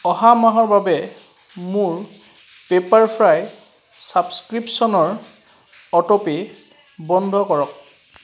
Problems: background sounds at intervals